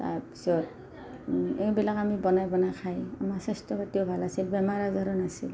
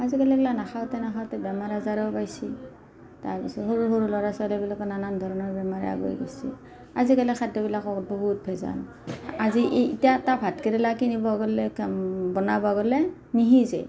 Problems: none marked